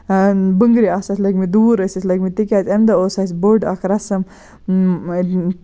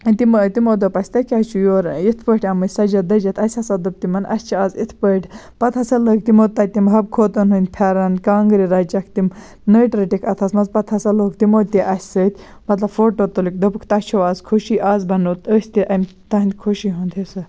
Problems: none marked